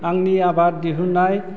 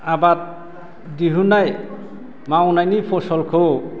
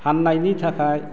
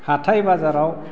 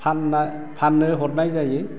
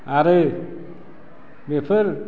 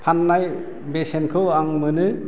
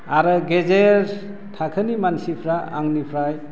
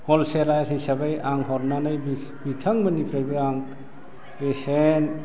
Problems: low volume